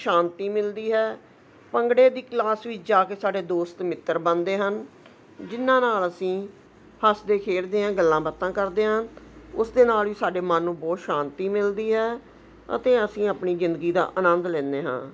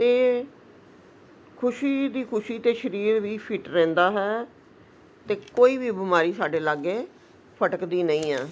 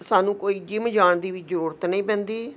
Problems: none marked